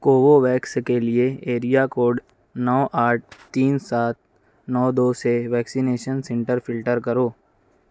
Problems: none marked